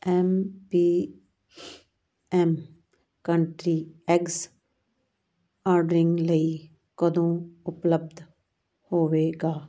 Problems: background sounds at intervals